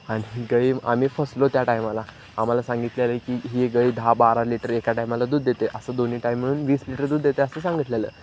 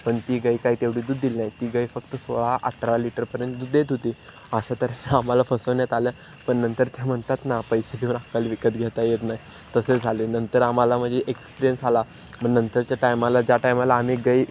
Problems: none marked